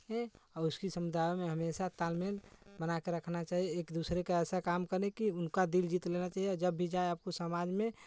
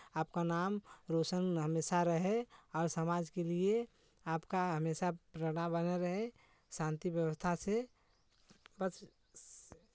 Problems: background sounds at intervals